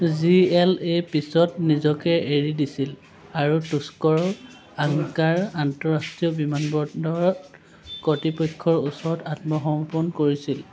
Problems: constant background noise